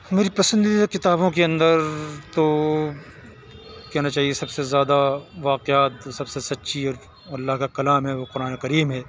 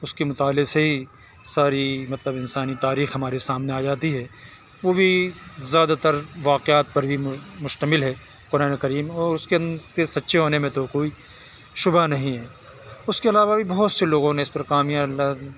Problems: none marked